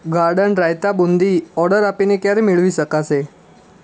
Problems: constant background noise